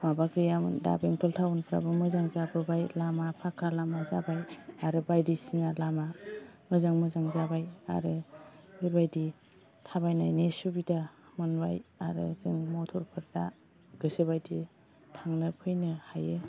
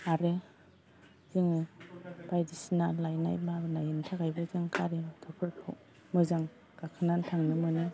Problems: none marked